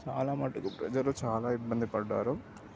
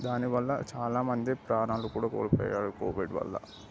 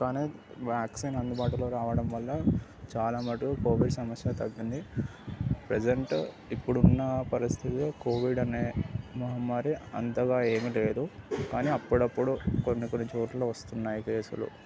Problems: none marked